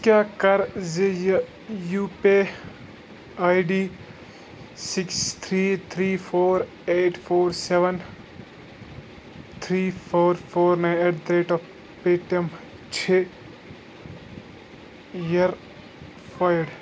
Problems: constant background noise